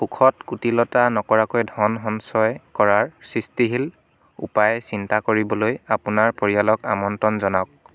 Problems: background sounds at intervals, background conversations at intervals